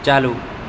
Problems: constant background noise